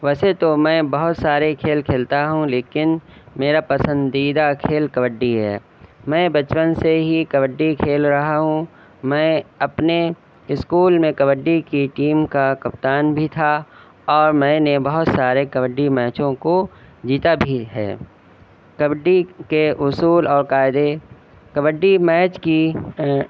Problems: background sounds at intervals